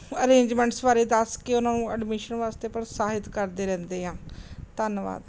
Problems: none marked